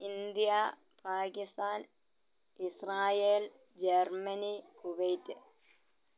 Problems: low volume